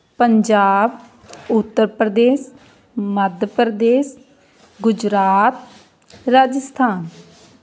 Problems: background conversations at intervals